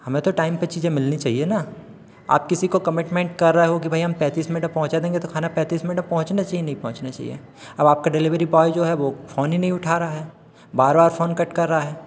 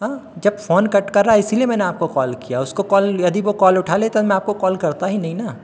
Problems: constant background noise, echo